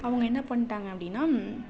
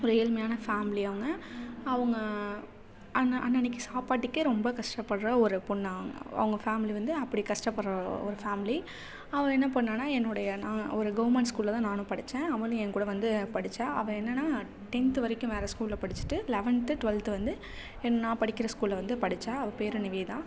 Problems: none marked